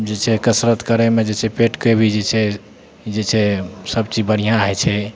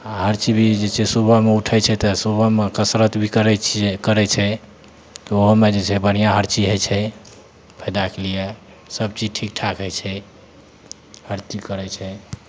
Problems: none marked